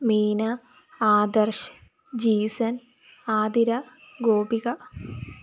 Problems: background sounds at intervals